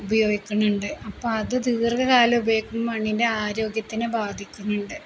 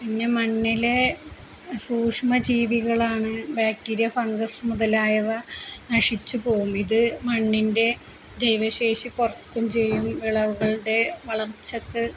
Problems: constant background noise, low volume